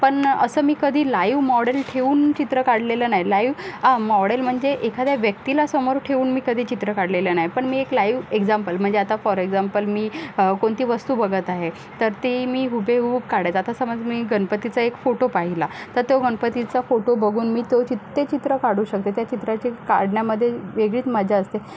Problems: none marked